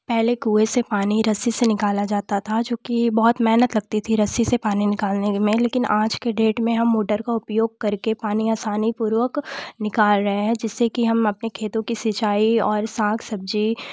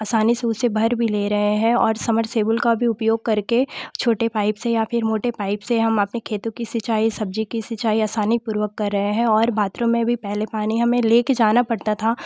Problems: constant background noise